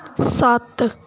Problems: background sounds at intervals